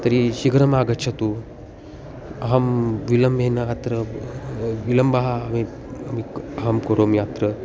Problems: constant background noise